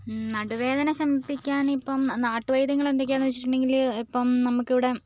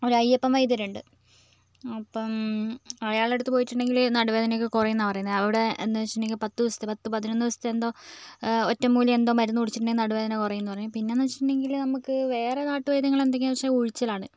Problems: background sounds at intervals